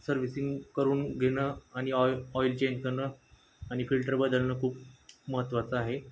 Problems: none marked